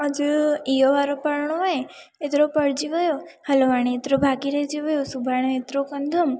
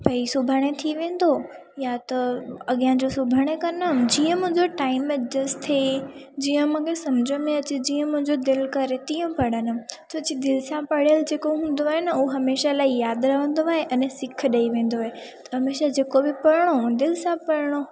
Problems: constant background noise, echo